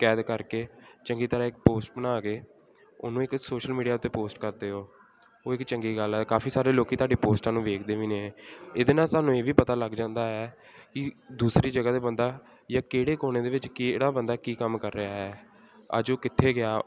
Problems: constant background noise